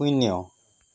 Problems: none marked